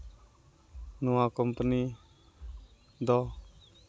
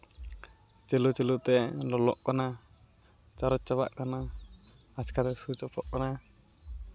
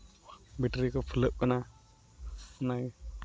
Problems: none marked